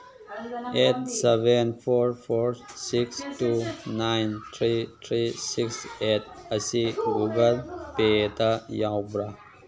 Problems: background conversations at intervals